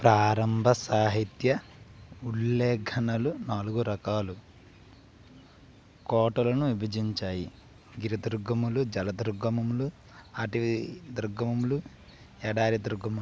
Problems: low volume